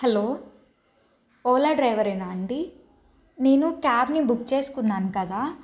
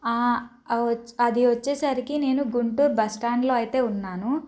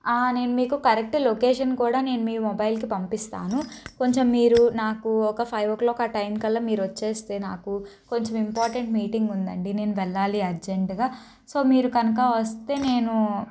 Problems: none marked